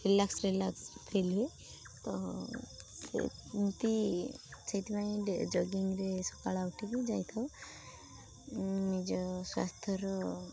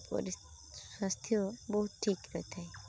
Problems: constant background noise